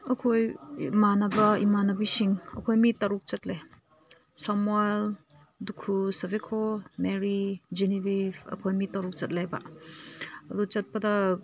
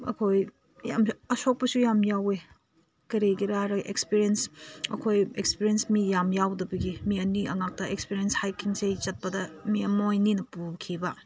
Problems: constant background noise